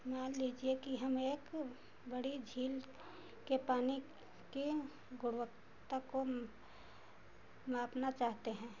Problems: constant background noise